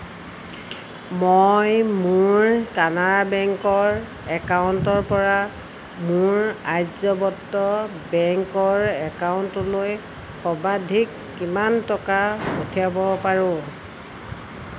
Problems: constant background noise